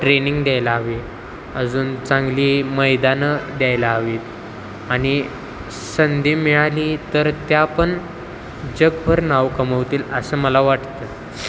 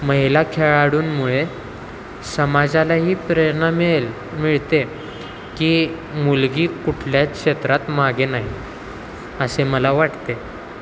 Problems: constant background noise